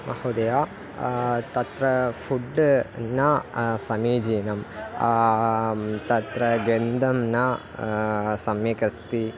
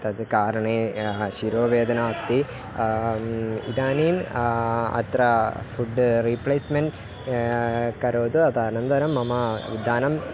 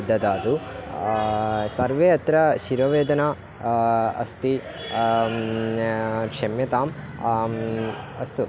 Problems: continuous background conversations